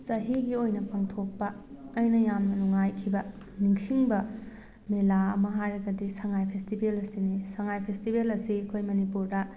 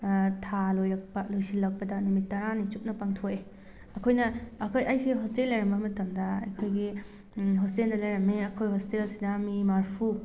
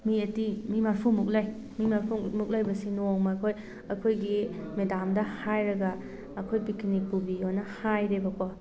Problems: background sounds at intervals